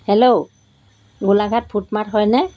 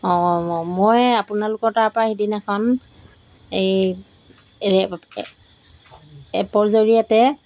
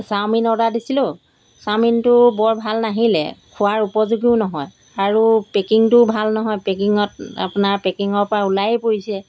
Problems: background sounds at intervals